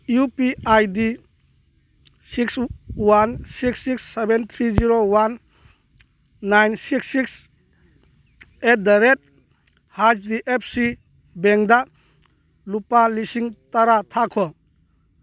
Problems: none marked